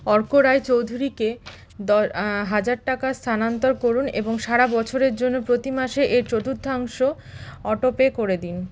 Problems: background sounds at intervals